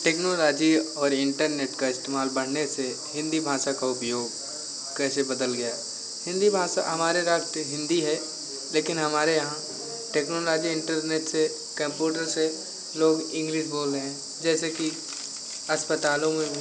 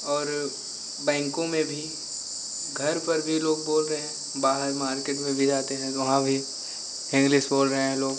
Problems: constant background noise